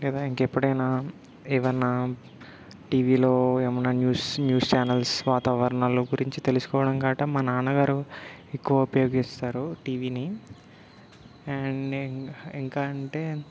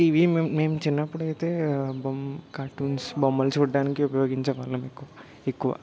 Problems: none marked